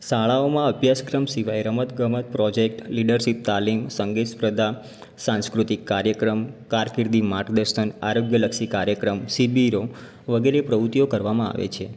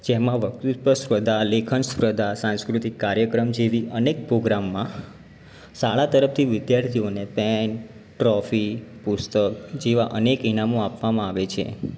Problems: background sounds at intervals